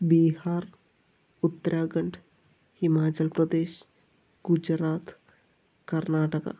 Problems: low volume